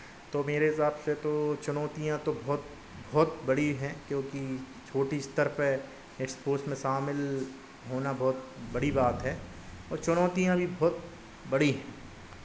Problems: none marked